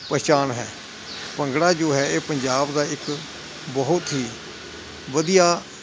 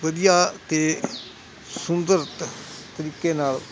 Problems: constant background noise